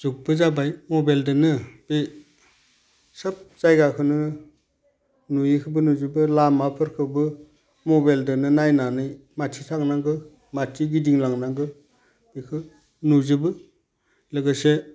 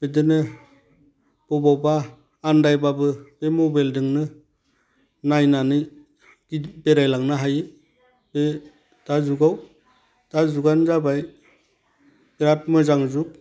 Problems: constant background noise